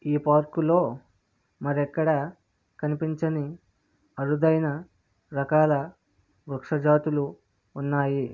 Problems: none marked